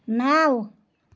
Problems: background sounds at intervals